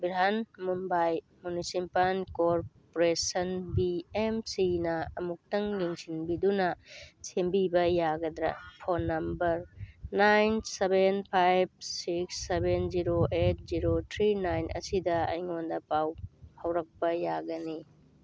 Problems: none marked